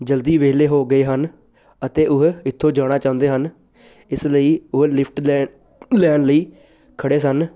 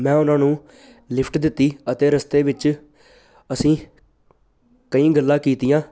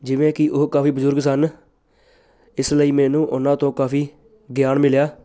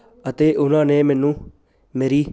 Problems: none marked